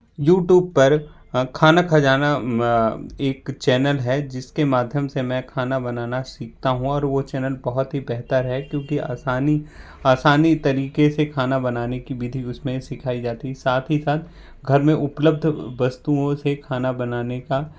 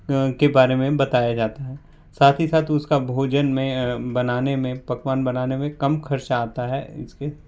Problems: constant background noise